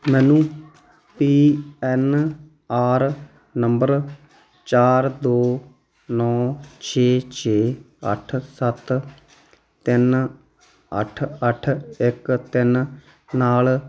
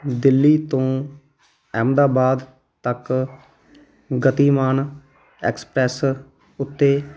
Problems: none marked